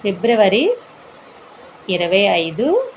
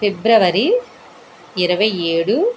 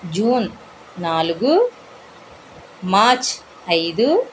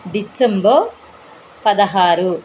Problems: constant background noise